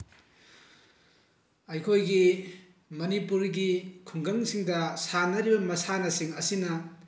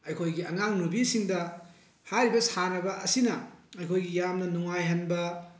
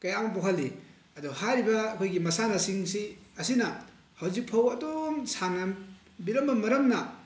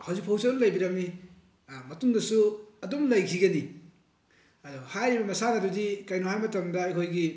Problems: constant background noise